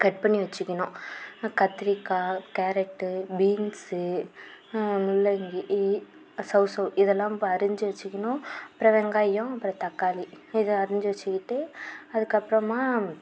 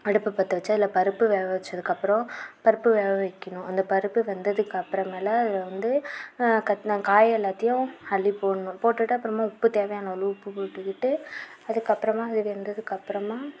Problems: constant background noise